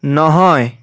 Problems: none marked